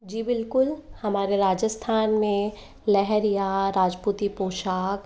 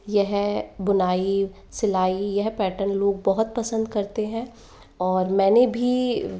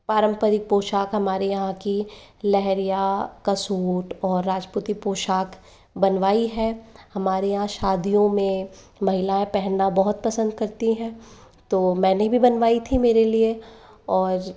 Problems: constant background noise